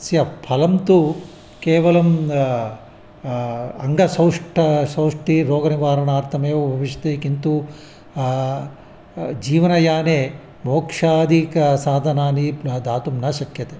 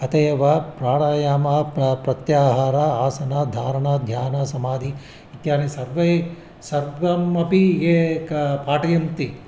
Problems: constant background noise